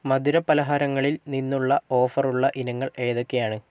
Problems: none marked